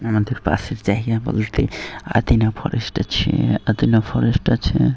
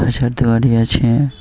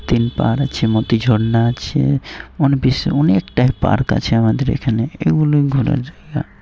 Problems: constant background noise